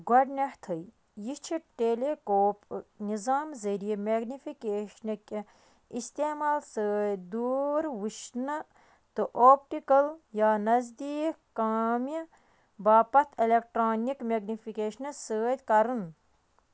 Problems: background sounds at intervals